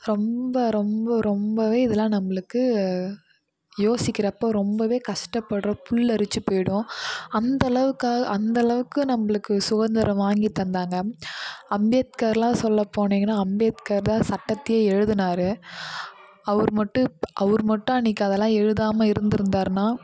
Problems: none marked